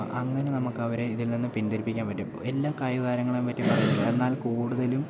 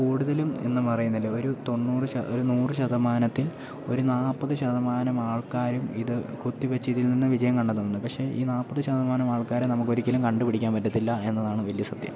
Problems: background sounds at intervals, low volume